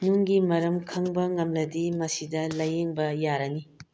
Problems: low volume